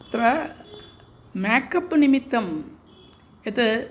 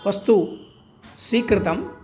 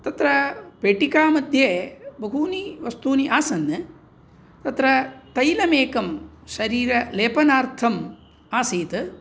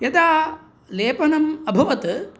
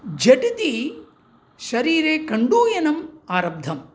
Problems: none marked